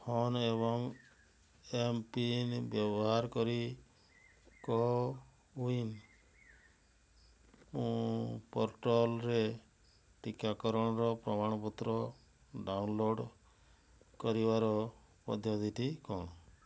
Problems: low volume